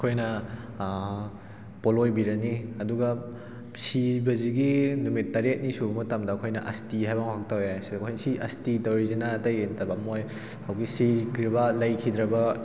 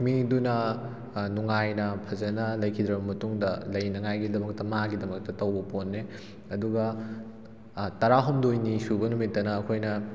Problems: background sounds at intervals